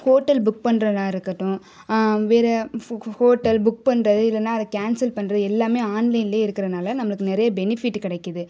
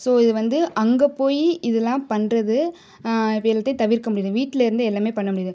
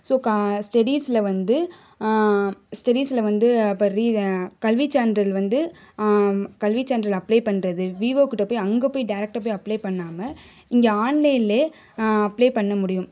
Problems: none marked